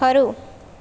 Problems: none marked